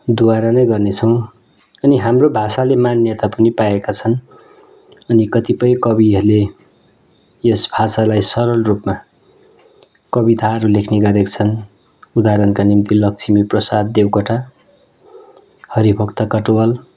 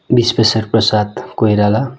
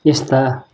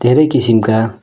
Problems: background conversations at intervals